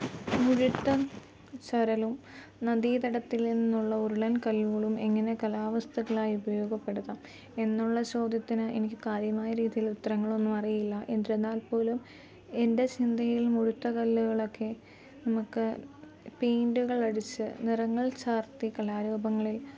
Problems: low volume